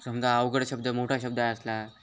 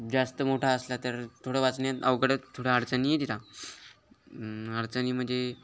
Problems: constant background noise